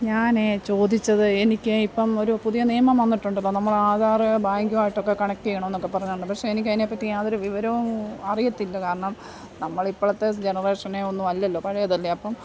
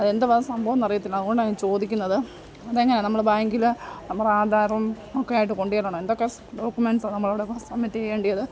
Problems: background sounds at intervals, low volume